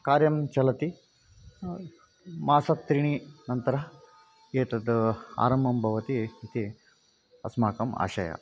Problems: constant background noise